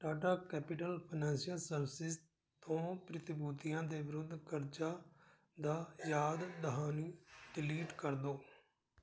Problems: none marked